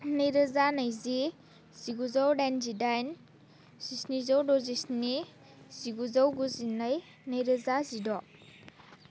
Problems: none marked